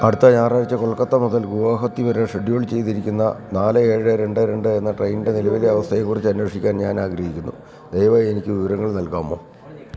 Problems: background sounds at intervals